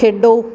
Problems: none marked